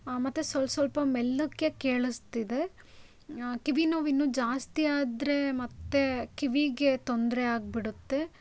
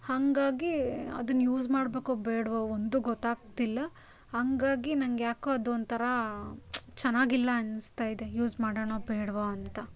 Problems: none marked